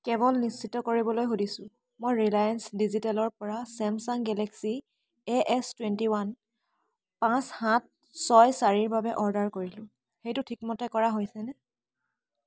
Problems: constant background noise